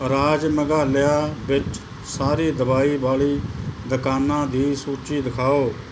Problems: none marked